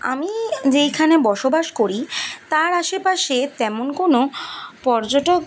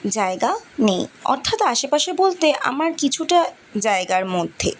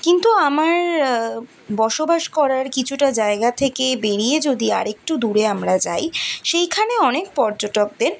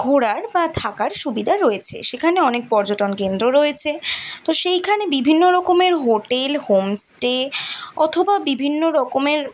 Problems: constant background noise